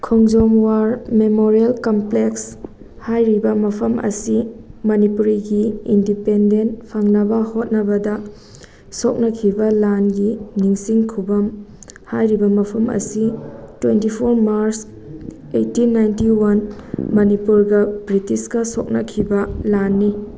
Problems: background sounds at intervals, background conversations at intervals